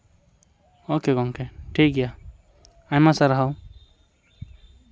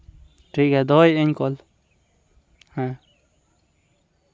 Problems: none marked